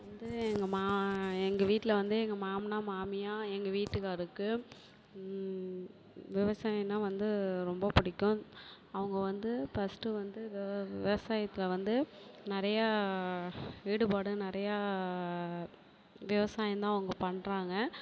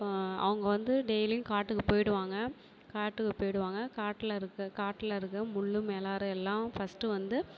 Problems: none marked